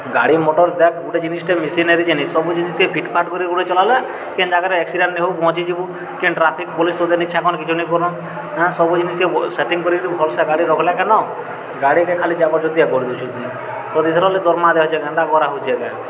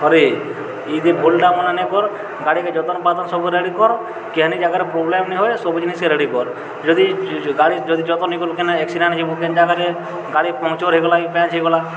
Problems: none marked